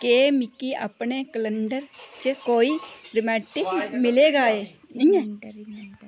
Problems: constant background noise, background conversations at intervals